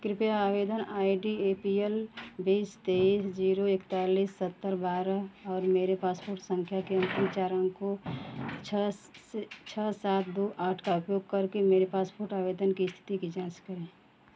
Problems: none marked